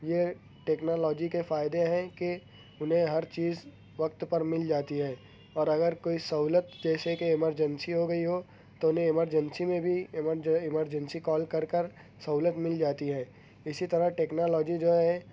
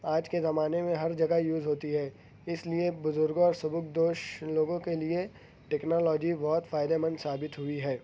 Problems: constant background noise